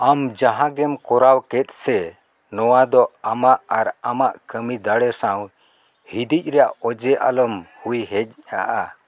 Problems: none marked